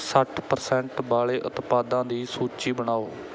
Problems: background sounds at intervals